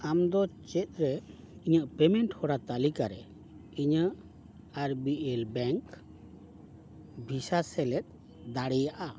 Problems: background sounds at intervals